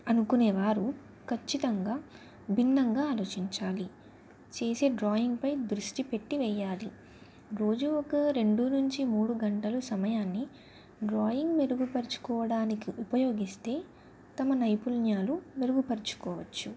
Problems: none marked